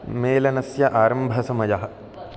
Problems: none marked